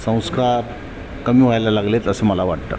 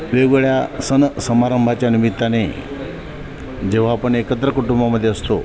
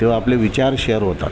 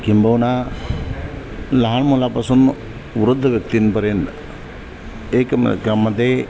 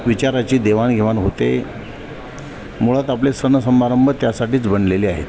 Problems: none marked